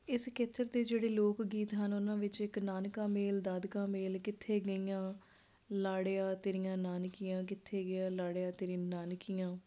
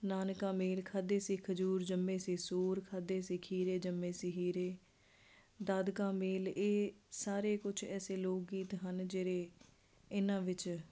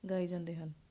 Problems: none marked